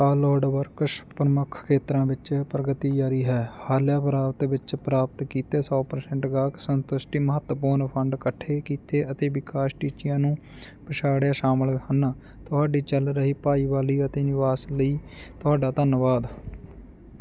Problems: none marked